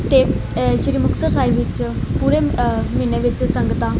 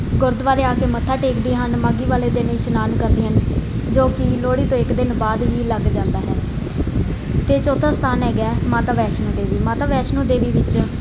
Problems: constant background noise